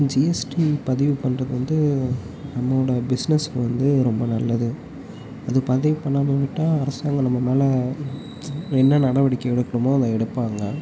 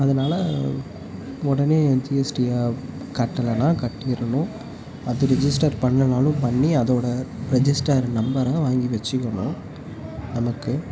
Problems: constant background noise, low volume